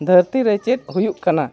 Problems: background sounds at intervals